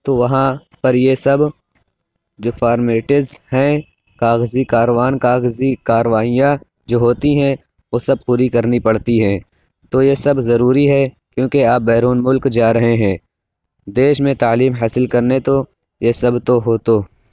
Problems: none marked